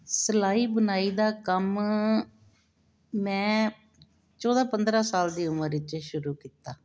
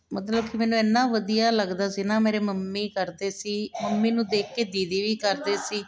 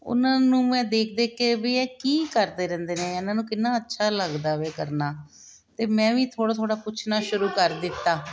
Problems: continuous background conversations